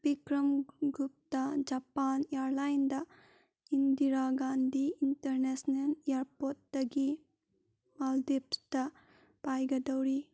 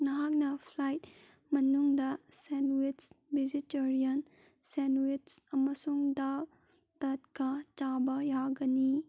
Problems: background sounds at intervals